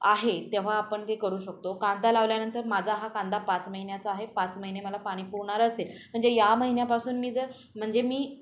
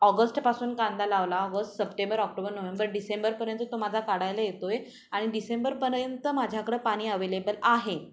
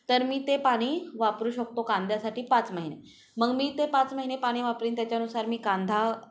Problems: background sounds at intervals, background conversations at intervals